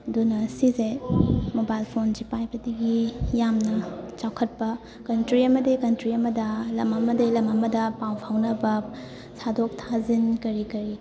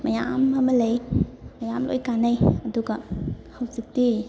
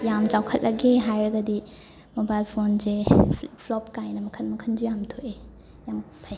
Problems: constant background noise, background conversations at intervals